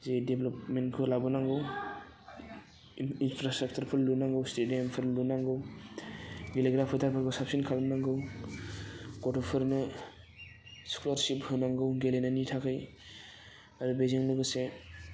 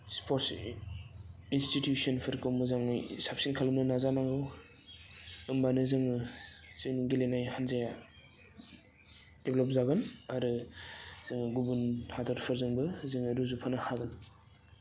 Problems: constant background noise